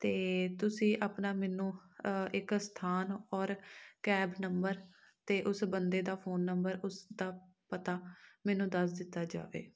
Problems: none marked